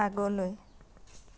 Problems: background sounds at intervals